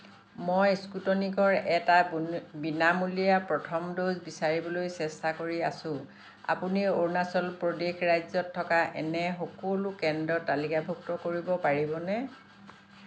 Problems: constant background noise